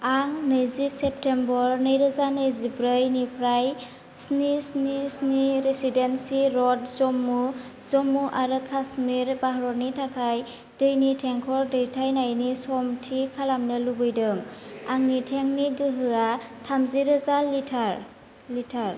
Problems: constant background noise